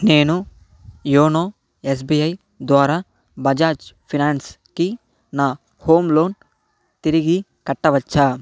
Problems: background sounds at intervals